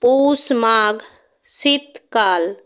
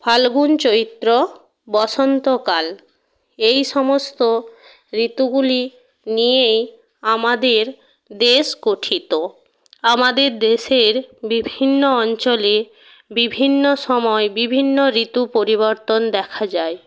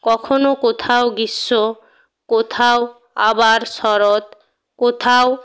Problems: none marked